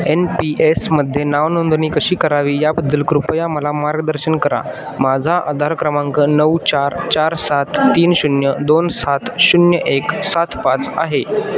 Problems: none marked